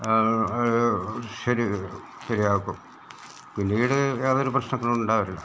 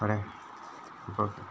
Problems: background sounds at intervals